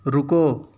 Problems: constant background noise, low volume